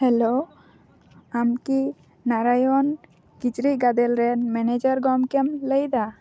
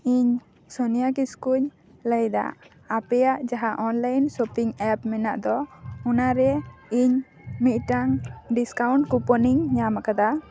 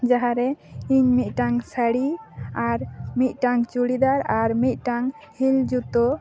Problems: constant background noise